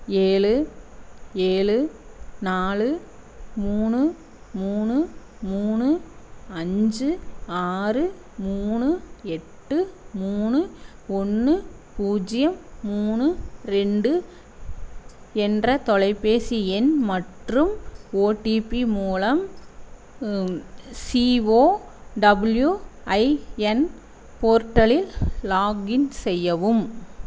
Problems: none marked